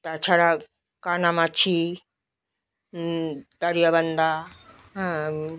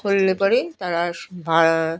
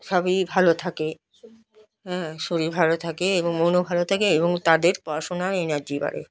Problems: none marked